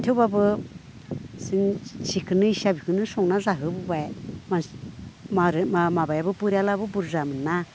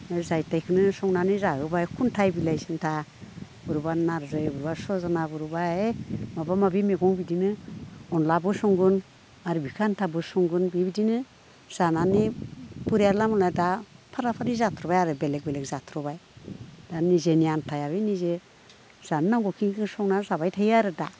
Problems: none marked